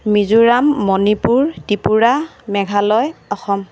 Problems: constant background noise